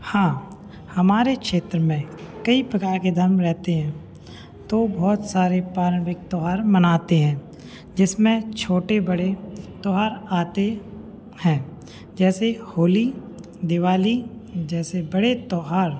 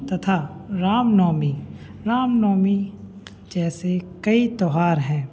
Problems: none marked